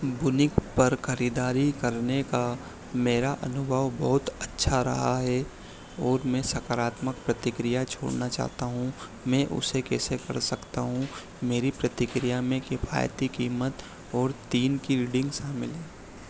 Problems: none marked